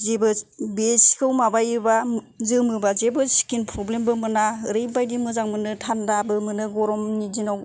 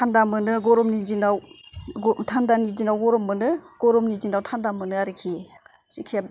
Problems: none marked